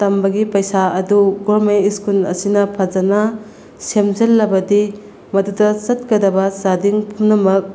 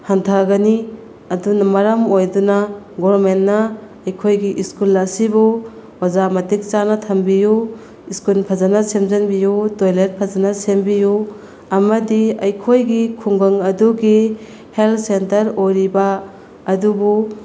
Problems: background sounds at intervals